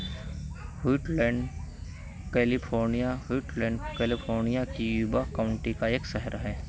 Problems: constant background noise